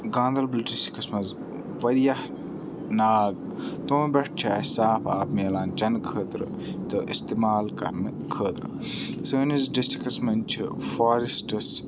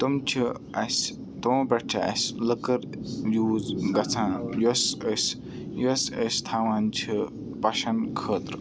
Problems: background sounds at intervals, continuous background conversations